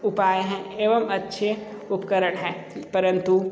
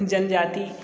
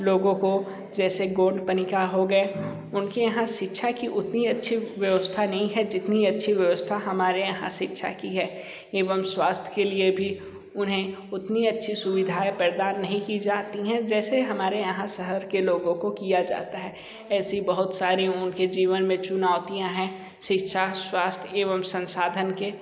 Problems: constant background noise